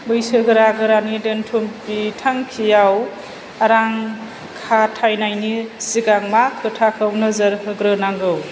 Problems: low volume